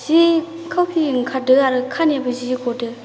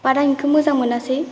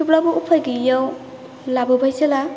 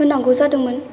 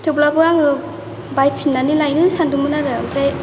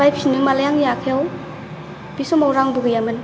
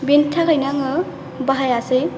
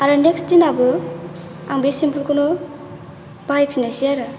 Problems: constant background noise